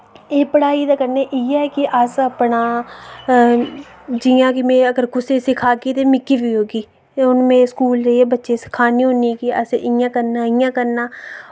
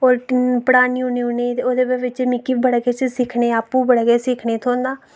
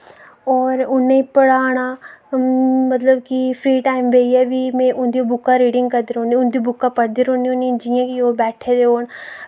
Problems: none marked